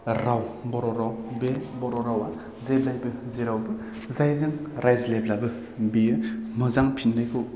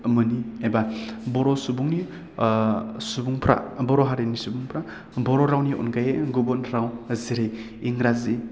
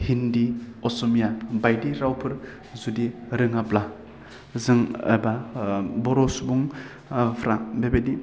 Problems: none marked